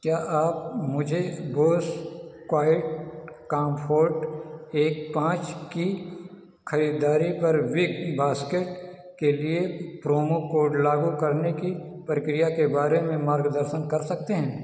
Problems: none marked